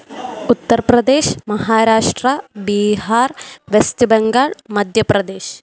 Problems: none marked